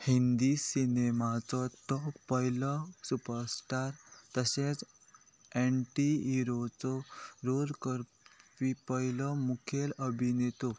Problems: constant background noise